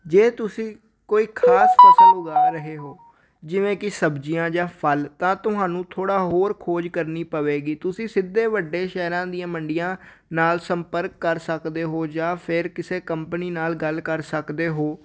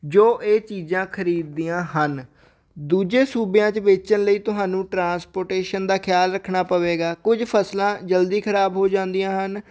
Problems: none marked